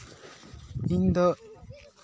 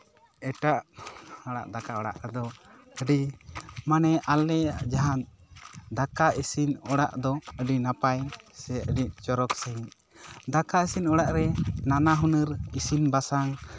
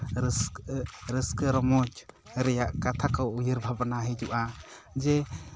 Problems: none marked